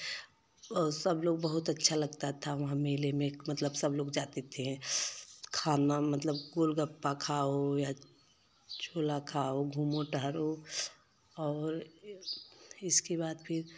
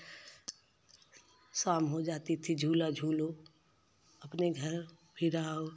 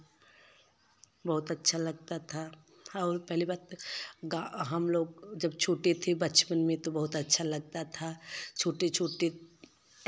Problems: constant background noise